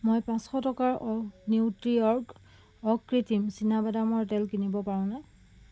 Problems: background sounds at intervals